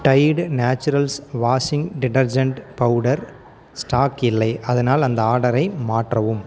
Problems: none marked